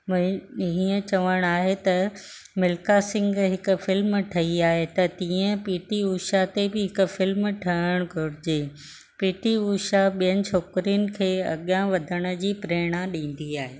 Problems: none marked